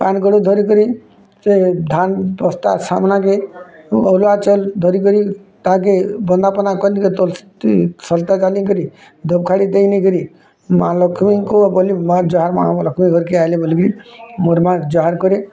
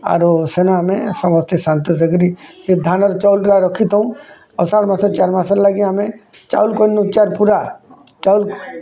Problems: constant background noise